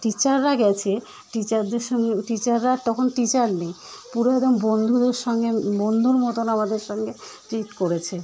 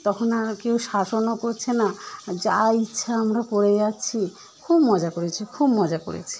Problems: none marked